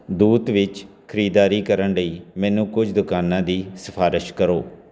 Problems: background conversations at intervals